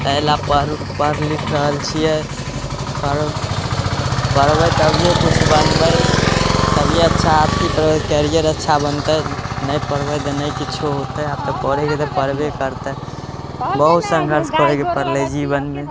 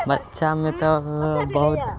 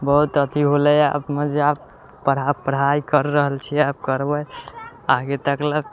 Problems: constant background noise